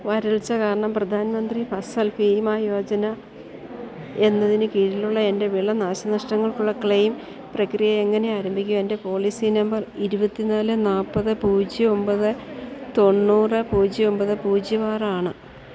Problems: constant background noise, low volume